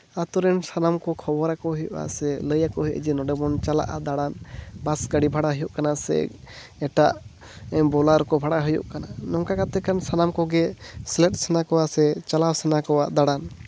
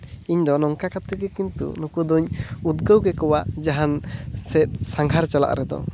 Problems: constant background noise